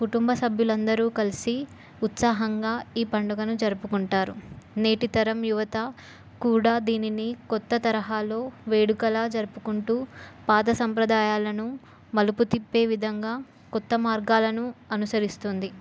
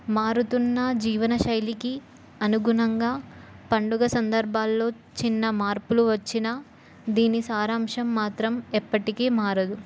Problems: none marked